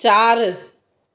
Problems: echo